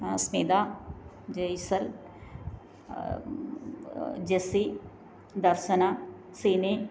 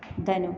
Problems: low volume